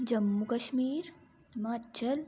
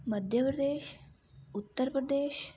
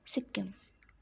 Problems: background sounds at intervals